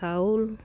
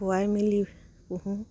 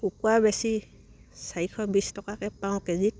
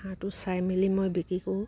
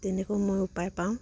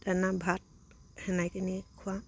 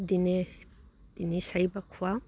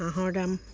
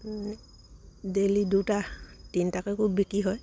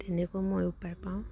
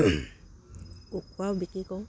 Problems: background sounds at intervals